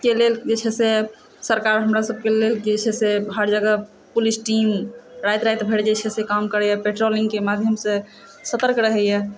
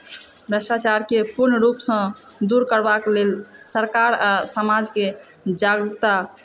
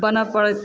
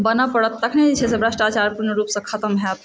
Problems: constant background noise, echo